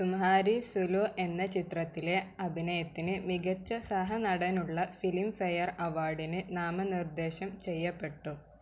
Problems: none marked